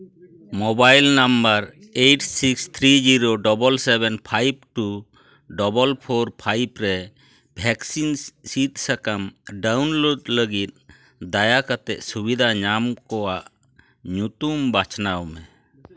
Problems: continuous background conversations